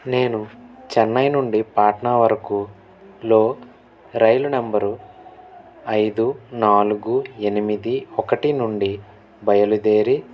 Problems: none marked